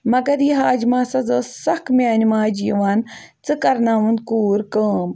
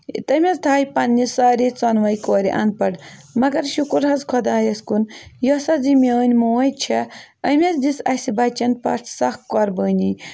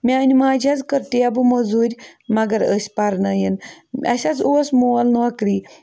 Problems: none marked